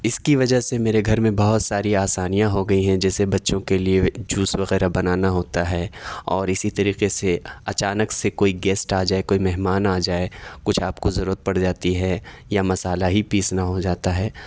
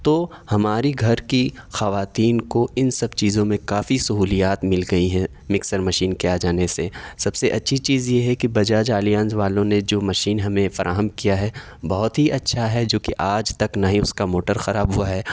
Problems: none marked